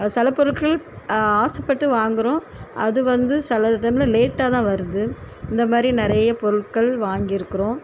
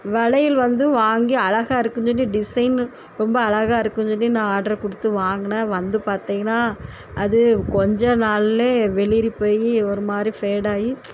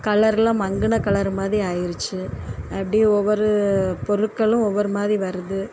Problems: constant background noise